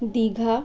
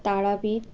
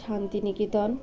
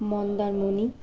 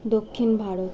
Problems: constant background noise